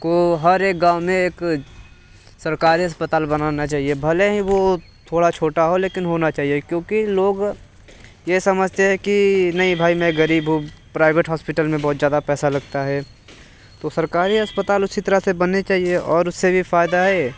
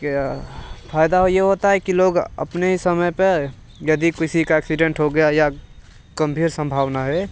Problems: background sounds at intervals